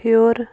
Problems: constant background noise